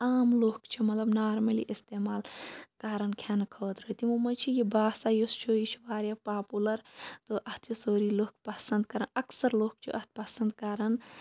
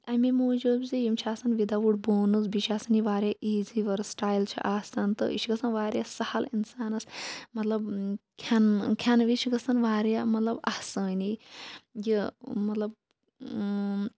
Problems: low volume